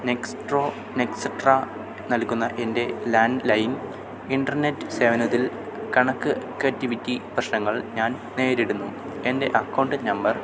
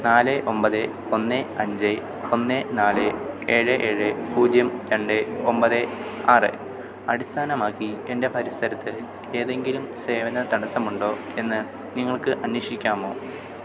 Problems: constant background noise